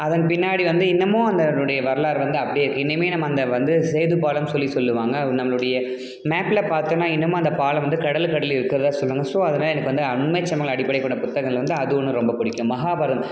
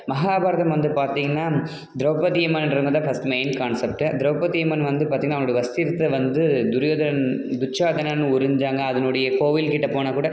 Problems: none marked